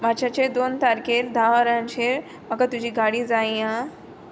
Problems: background sounds at intervals